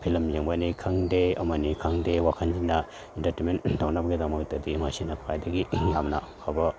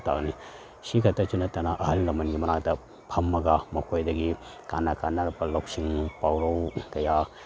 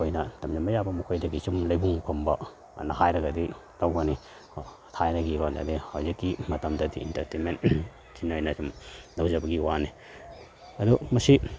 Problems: none marked